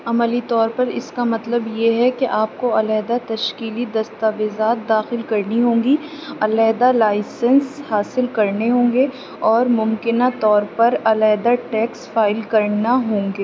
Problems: none marked